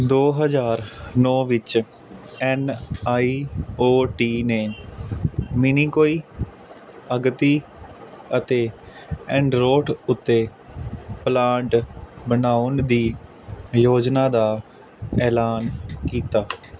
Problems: constant background noise